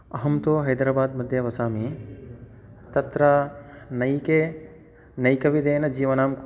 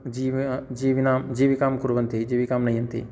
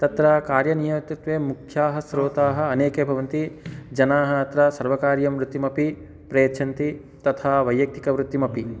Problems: none marked